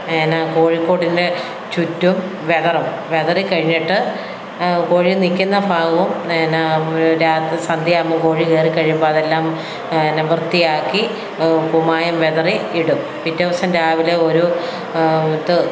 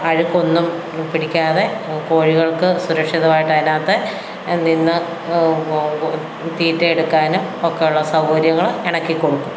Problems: background sounds at intervals